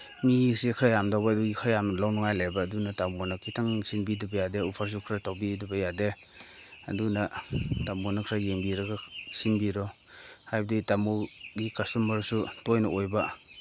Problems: constant background noise